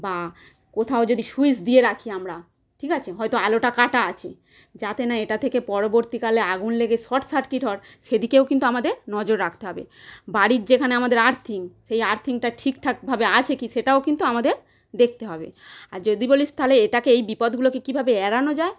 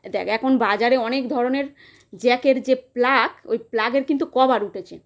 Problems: constant background noise